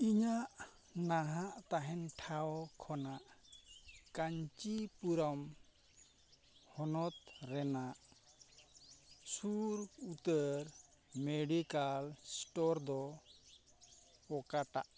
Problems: constant background noise